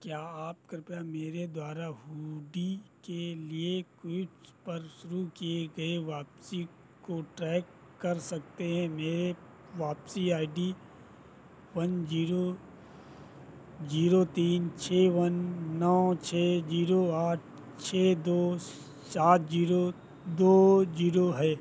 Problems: none marked